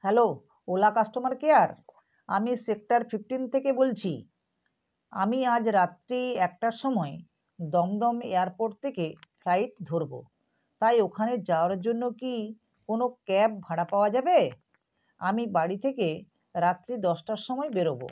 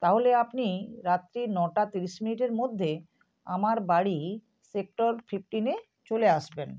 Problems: none marked